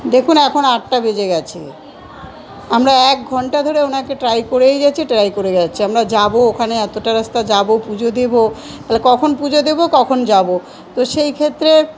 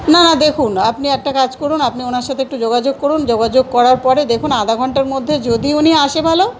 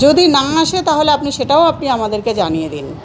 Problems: none marked